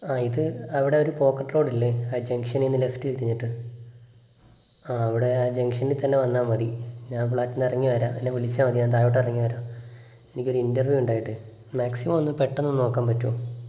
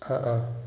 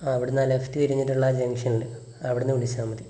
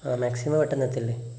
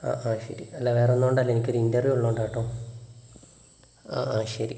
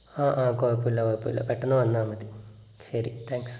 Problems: background sounds at intervals, low volume